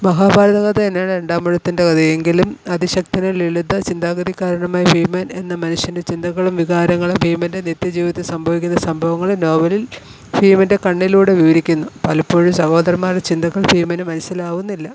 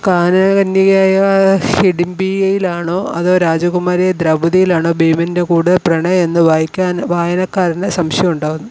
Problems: constant background noise